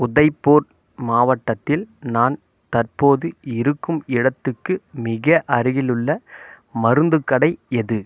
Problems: none marked